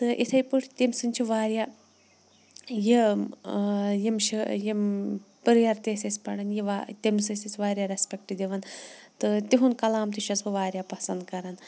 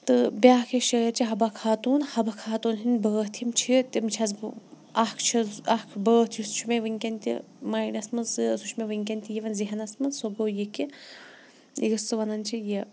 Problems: background sounds at intervals